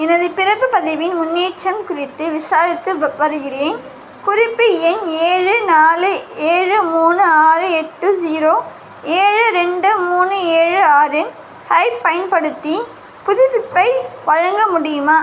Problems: constant background noise